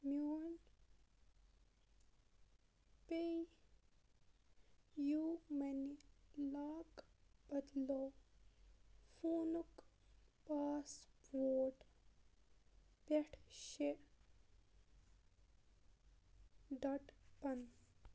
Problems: background sounds at intervals, low volume